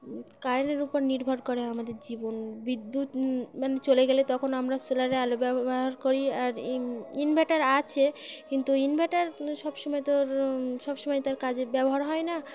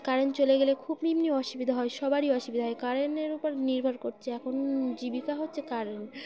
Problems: constant background noise, continuous background conversations